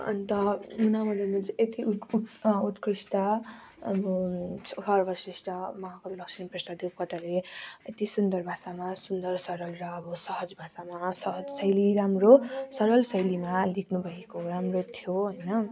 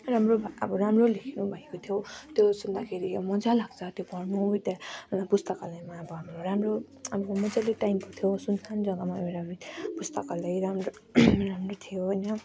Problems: constant background noise